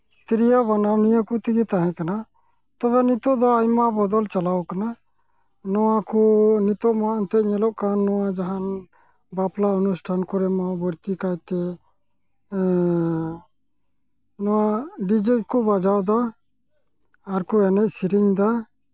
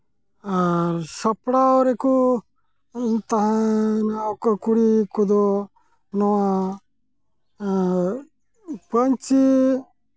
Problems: constant background noise